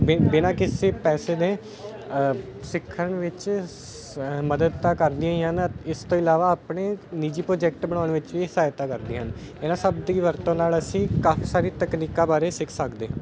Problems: constant background noise